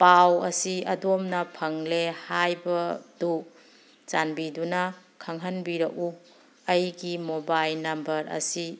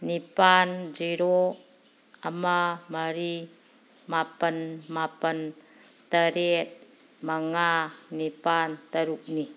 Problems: background sounds at intervals